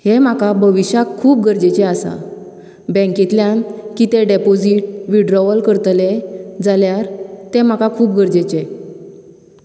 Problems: none marked